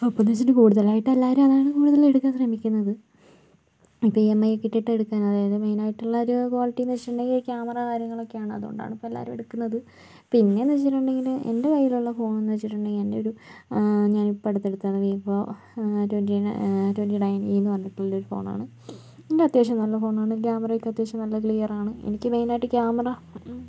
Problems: low volume